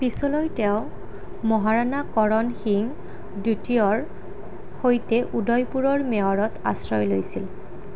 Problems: none marked